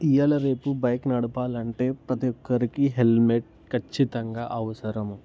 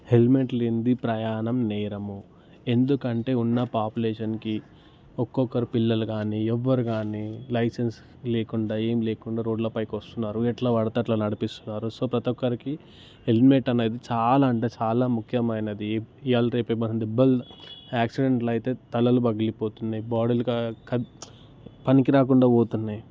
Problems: constant background noise